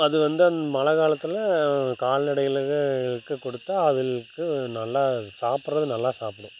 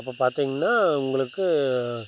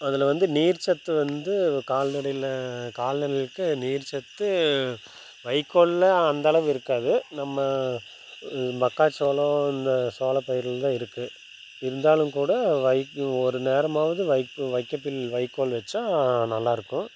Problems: constant background noise